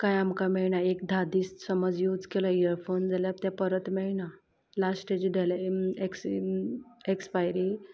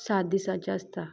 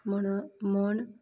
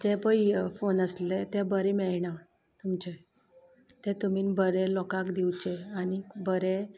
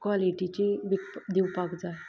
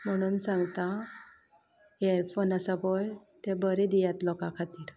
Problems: none marked